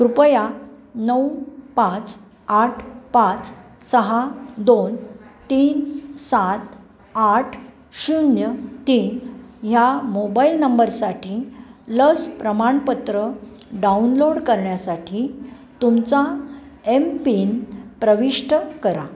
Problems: background sounds at intervals, background conversations at intervals